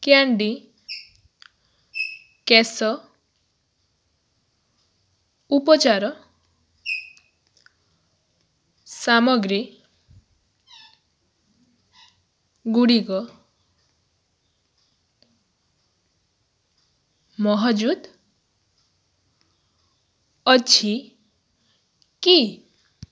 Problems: none marked